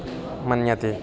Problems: continuous background conversations